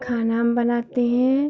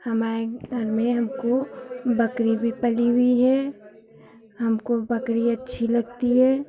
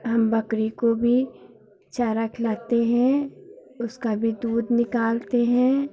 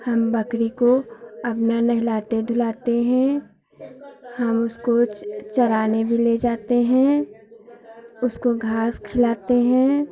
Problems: none marked